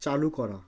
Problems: constant background noise